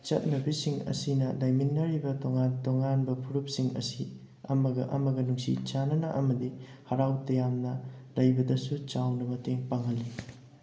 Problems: none marked